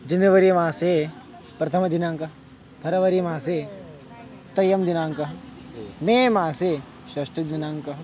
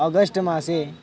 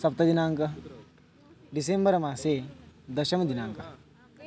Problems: constant background noise, continuous background conversations